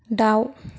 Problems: none marked